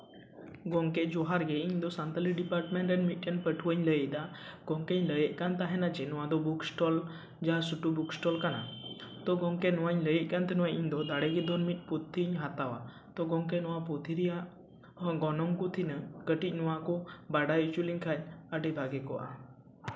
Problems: background sounds at intervals